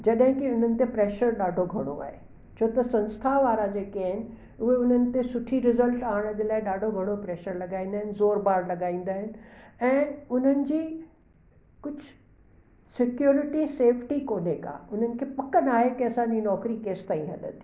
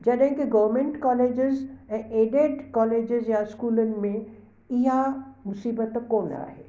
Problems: constant background noise, echo